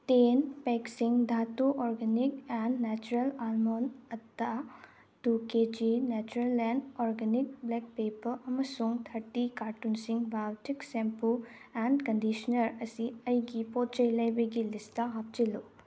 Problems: none marked